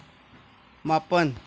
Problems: none marked